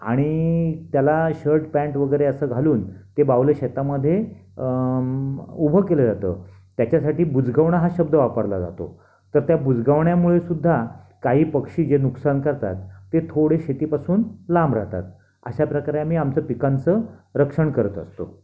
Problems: none marked